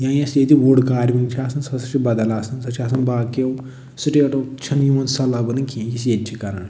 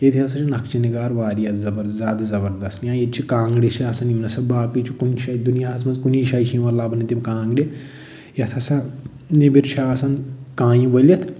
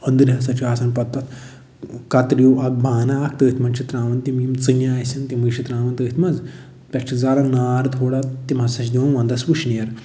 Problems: none marked